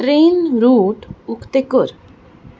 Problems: background sounds at intervals